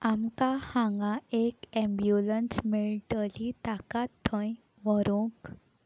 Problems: constant background noise